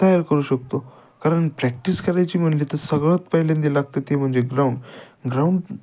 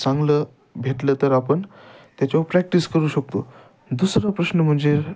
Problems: none marked